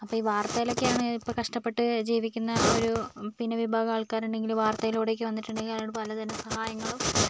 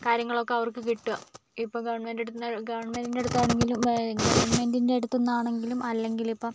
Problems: background sounds at intervals